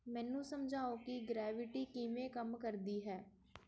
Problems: background sounds at intervals